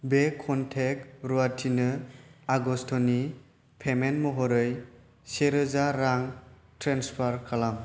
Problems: constant background noise